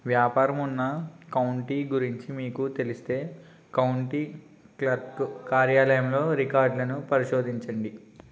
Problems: constant background noise